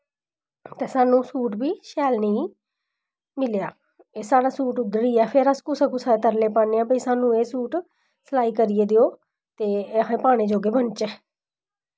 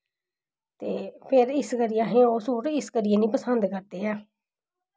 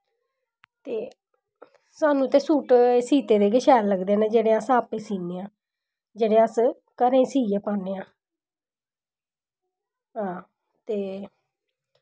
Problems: none marked